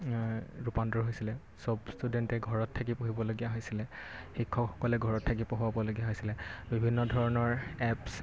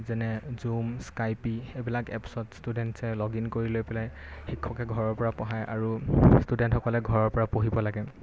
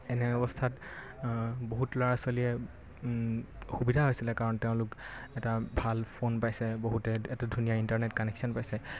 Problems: constant background noise